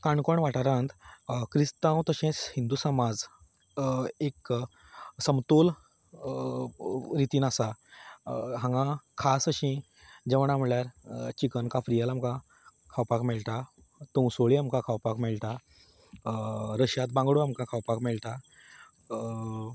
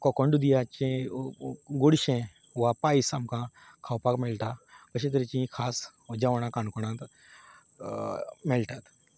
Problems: background sounds at intervals